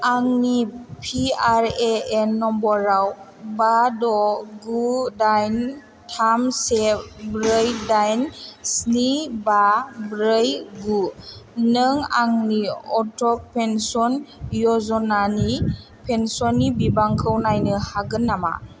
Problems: none marked